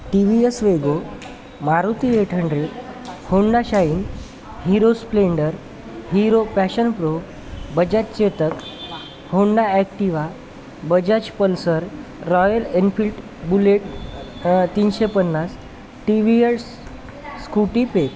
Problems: constant background noise, continuous background conversations